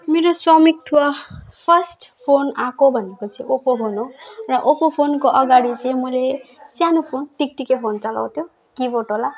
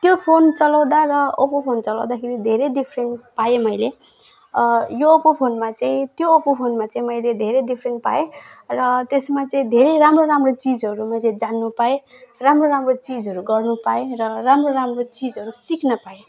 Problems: background sounds at intervals